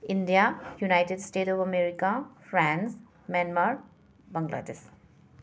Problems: background sounds at intervals